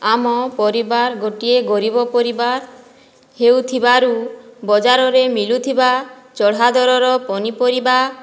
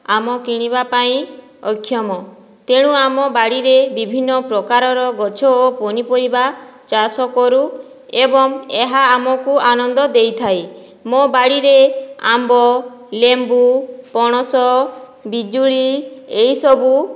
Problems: none marked